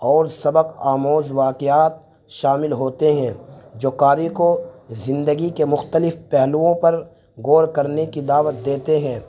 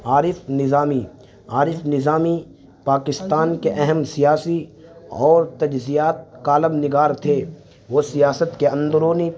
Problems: constant background noise